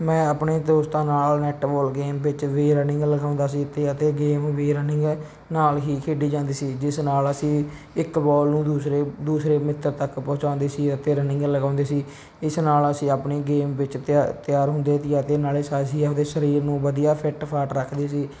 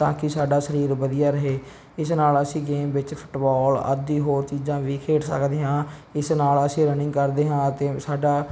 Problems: background sounds at intervals